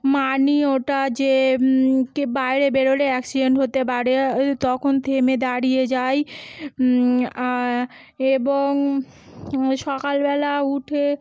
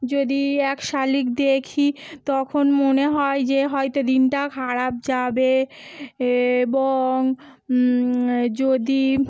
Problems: continuous background conversations